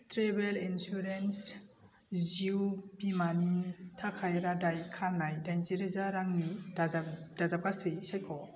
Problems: constant background noise